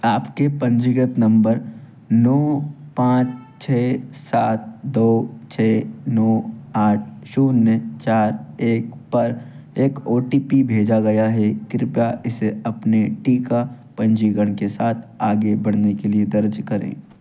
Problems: background sounds at intervals